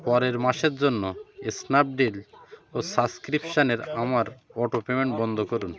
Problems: continuous background conversations